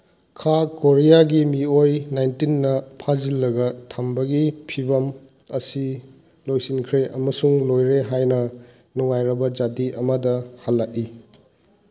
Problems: none marked